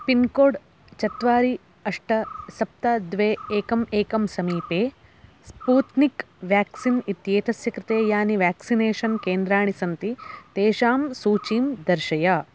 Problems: constant background noise